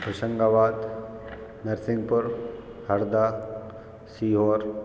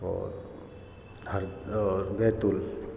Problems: constant background noise